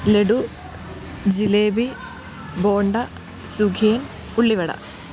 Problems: none marked